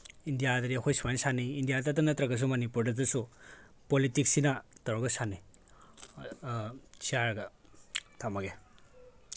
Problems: background conversations at intervals